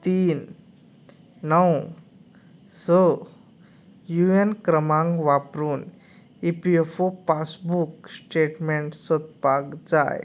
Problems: background conversations at intervals